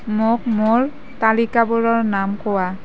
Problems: background conversations at intervals